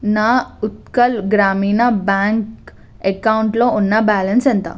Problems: none marked